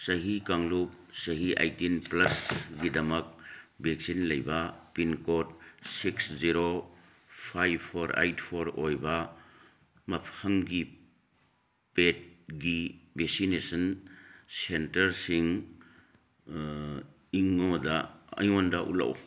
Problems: background sounds at intervals